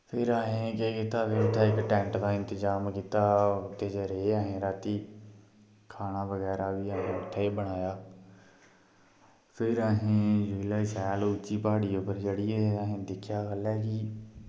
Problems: constant background noise